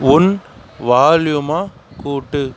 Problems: none marked